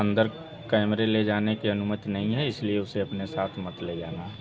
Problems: none marked